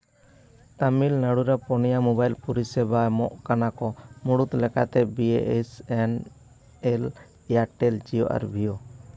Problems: background conversations at intervals